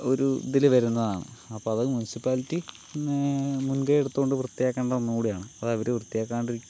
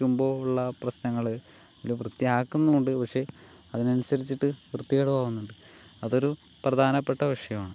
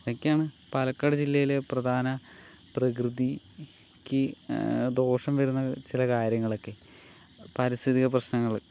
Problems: constant background noise